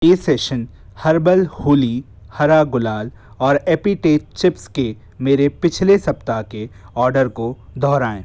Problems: none marked